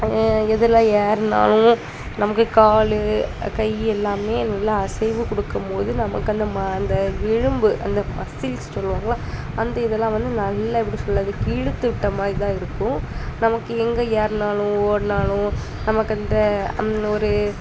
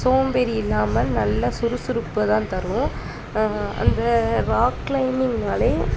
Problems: constant background noise, continuous background conversations